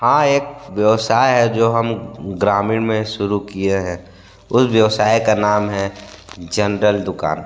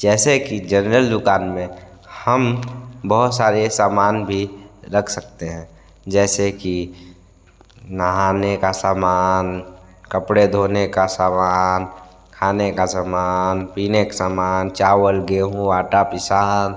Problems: constant background noise